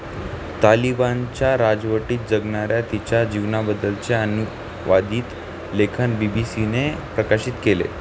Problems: constant background noise